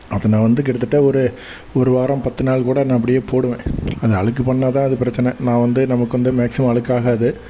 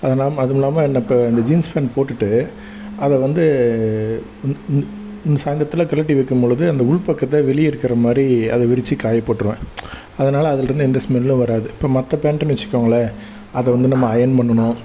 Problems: constant background noise